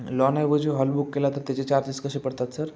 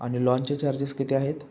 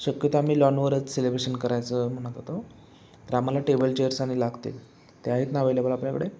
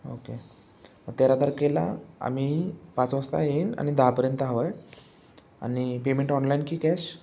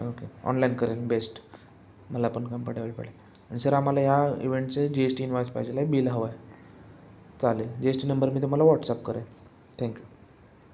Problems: background sounds at intervals, background conversations at intervals